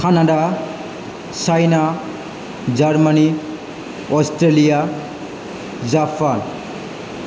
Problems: low volume